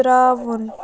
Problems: continuous background conversations